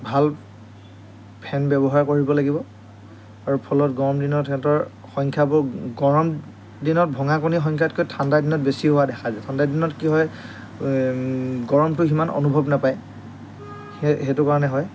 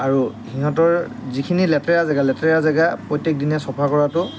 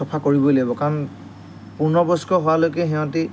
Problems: none marked